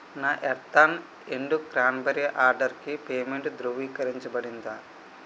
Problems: constant background noise